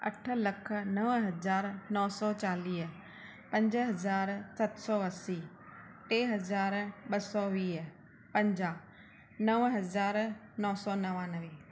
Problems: constant background noise